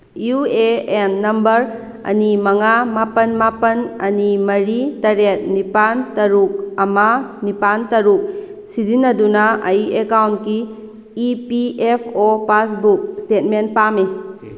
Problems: constant background noise